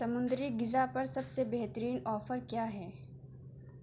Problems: none marked